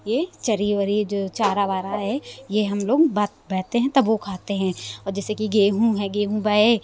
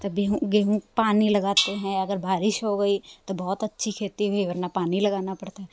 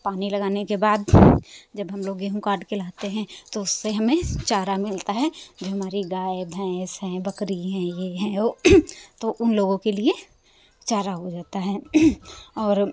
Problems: constant background noise